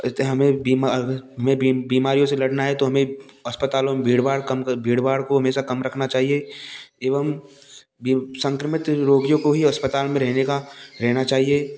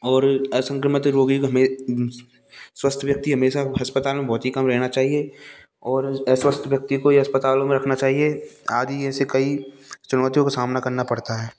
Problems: none marked